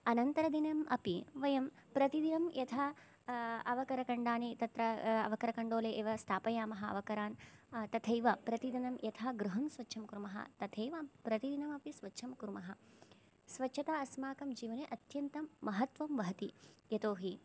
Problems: low volume